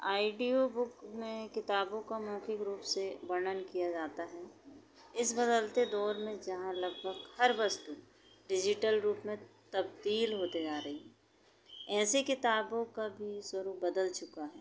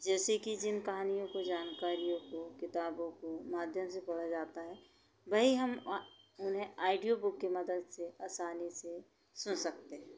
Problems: constant background noise